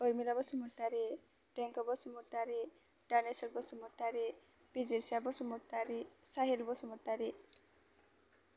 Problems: none marked